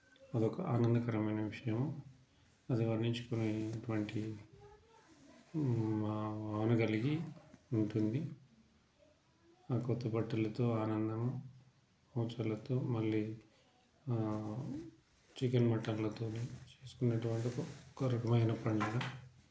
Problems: background sounds at intervals, low volume